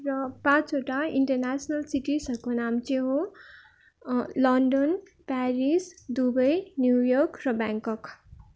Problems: none marked